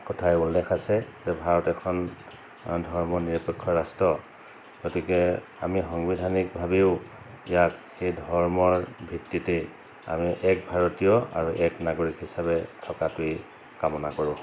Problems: constant background noise